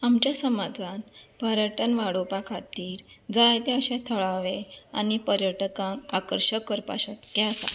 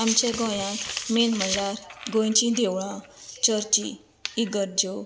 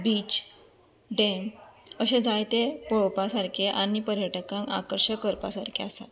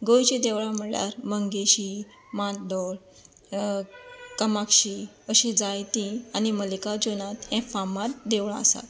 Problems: constant background noise